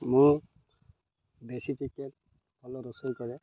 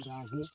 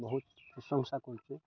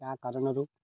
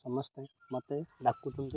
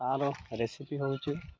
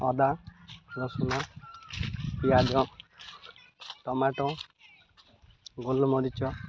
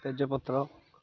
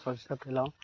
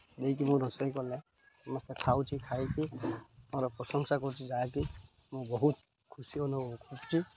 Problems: none marked